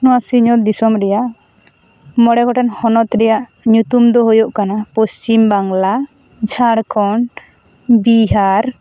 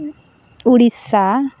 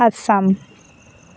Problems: constant background noise